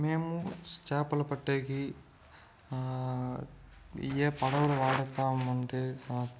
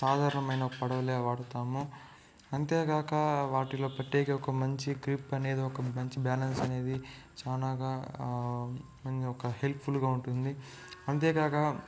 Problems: background sounds at intervals, low volume